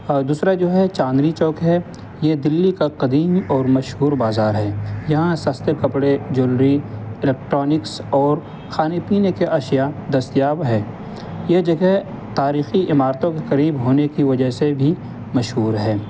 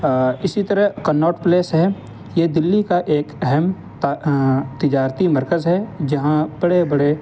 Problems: constant background noise